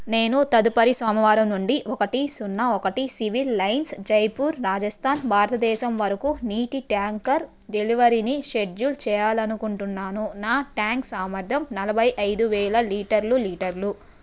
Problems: background sounds at intervals